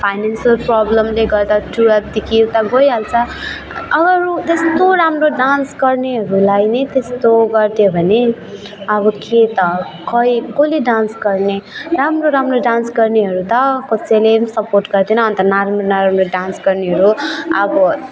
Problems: continuous background conversations